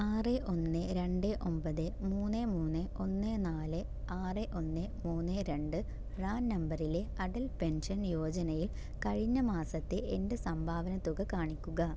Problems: none marked